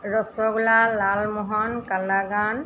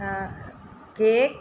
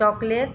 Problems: none marked